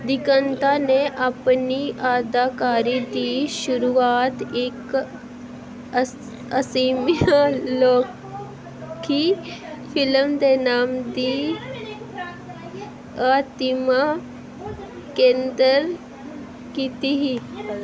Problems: background conversations at intervals